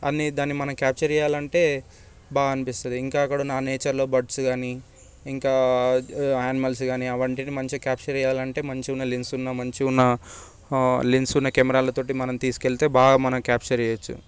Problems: none marked